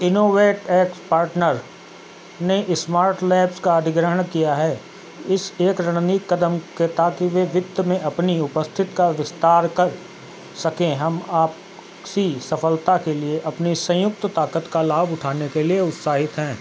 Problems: constant background noise